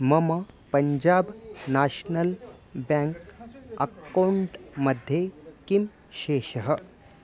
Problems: constant background noise